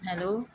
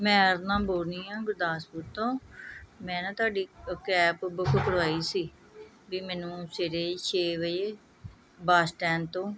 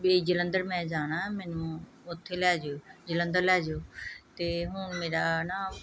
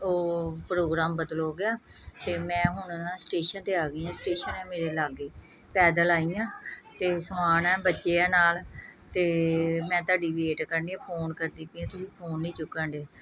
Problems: background sounds at intervals, background conversations at intervals